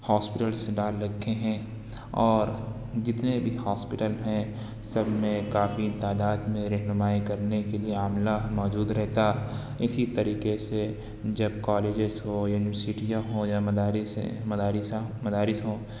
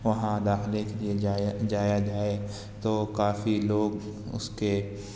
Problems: constant background noise